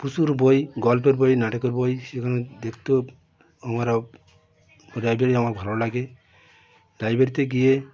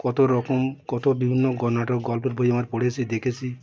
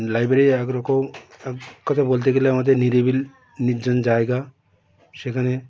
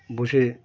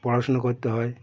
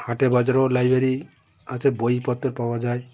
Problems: continuous background conversations